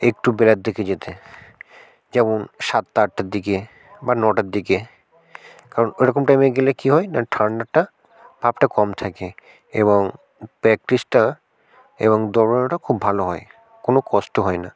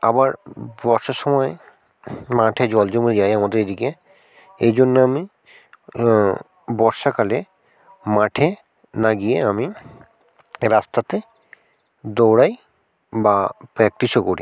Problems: constant background noise